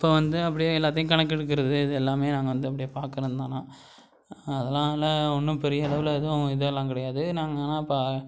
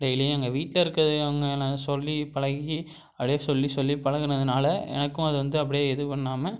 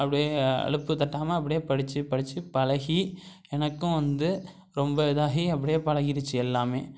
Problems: none marked